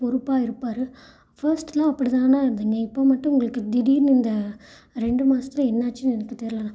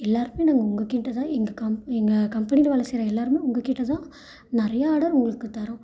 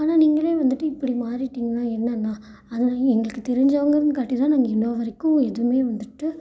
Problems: none marked